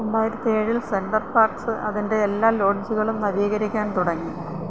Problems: constant background noise